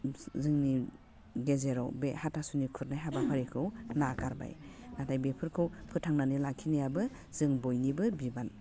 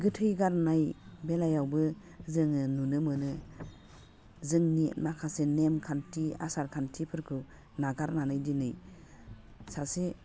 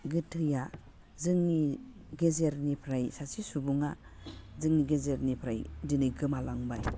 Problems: background sounds at intervals, low volume